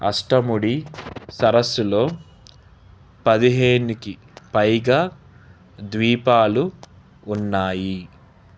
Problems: none marked